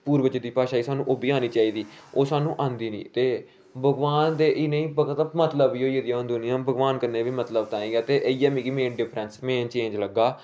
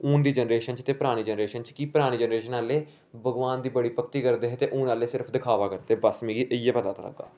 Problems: background sounds at intervals